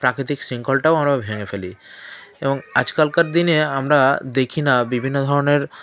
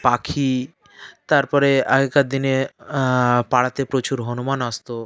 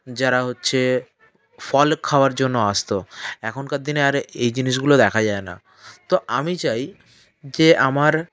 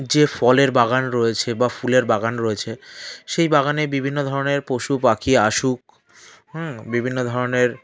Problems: background sounds at intervals, continuous background conversations